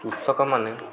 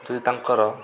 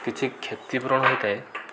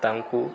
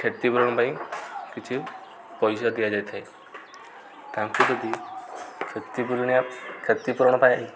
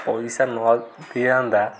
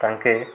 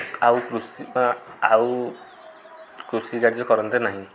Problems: constant background noise